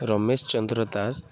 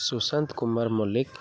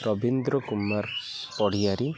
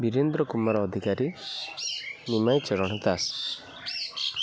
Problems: constant background noise, continuous background conversations